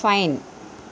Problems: constant background noise